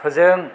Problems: low volume